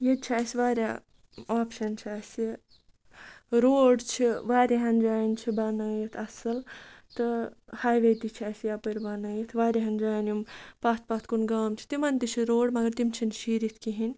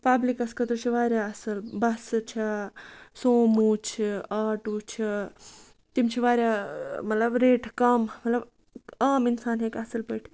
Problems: none marked